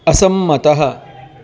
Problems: constant background noise